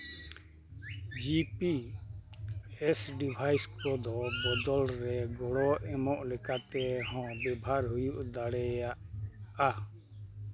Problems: background sounds at intervals